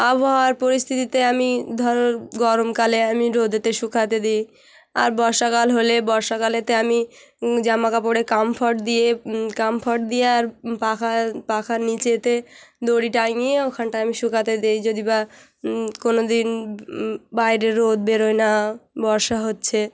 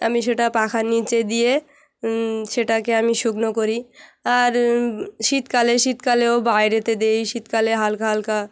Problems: none marked